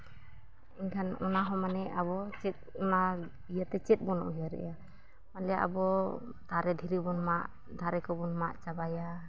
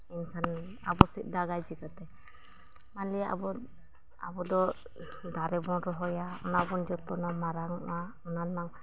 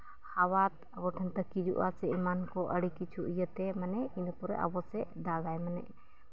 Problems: background sounds at intervals, low volume